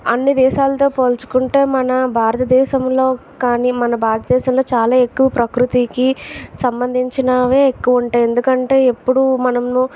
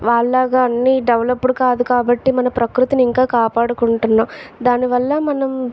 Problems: constant background noise, background conversations at intervals